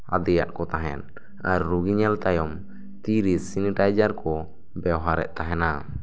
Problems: none marked